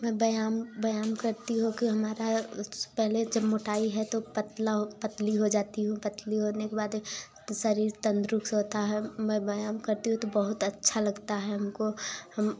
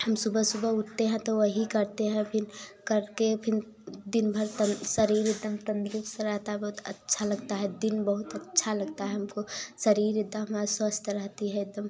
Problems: background sounds at intervals